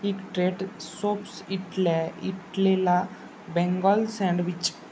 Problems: none marked